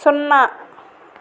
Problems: constant background noise